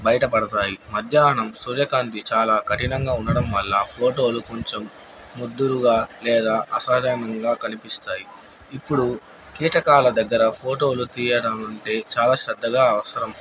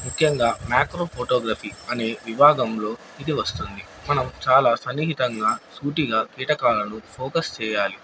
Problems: none marked